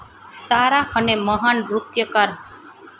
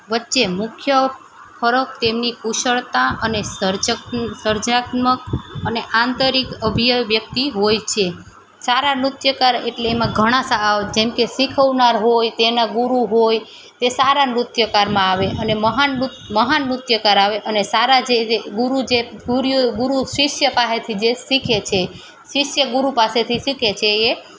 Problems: none marked